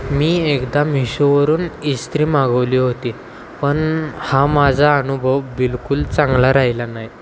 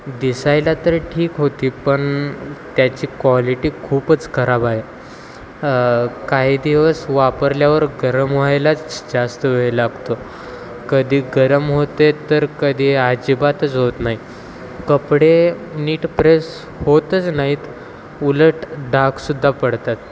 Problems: constant background noise, continuous background conversations